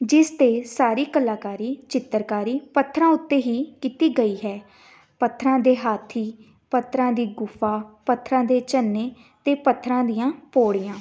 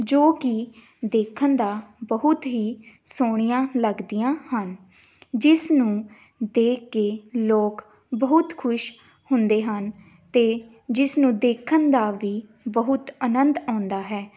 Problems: background sounds at intervals